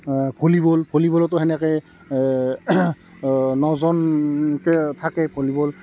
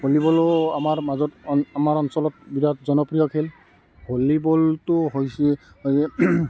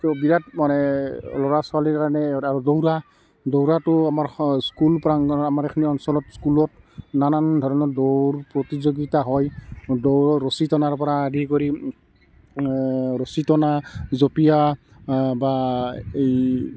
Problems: constant background noise